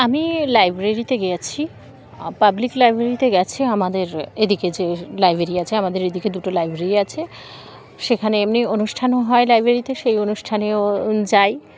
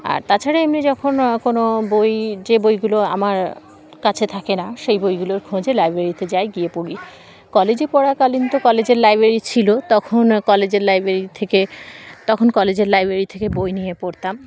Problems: constant background noise